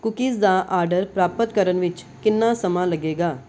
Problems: background sounds at intervals